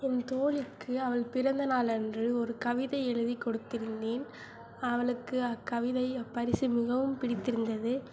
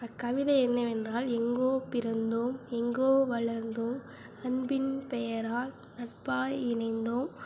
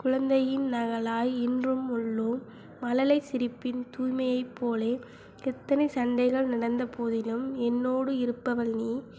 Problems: none marked